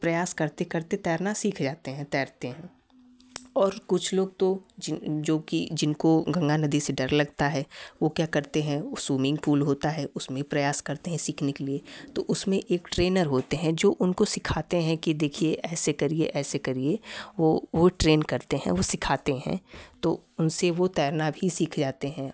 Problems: none marked